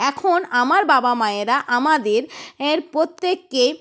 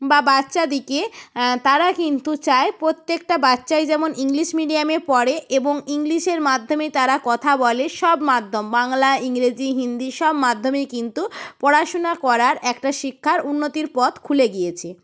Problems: none marked